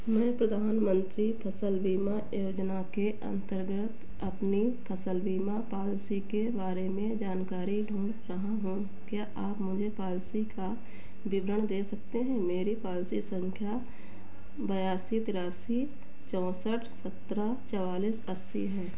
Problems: none marked